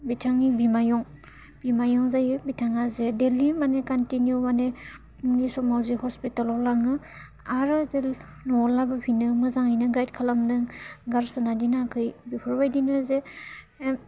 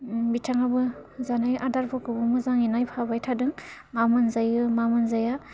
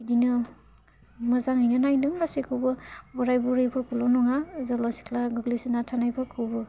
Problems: constant background noise